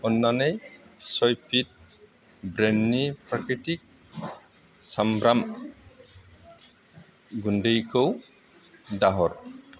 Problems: constant background noise